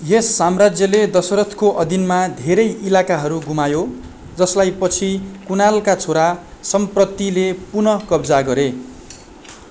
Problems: constant background noise